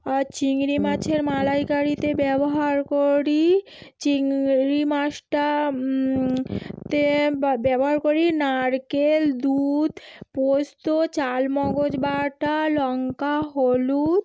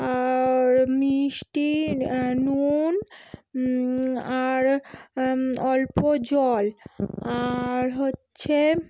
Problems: none marked